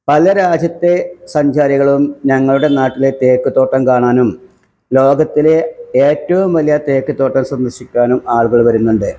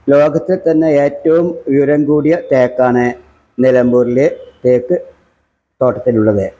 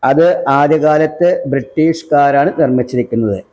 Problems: background sounds at intervals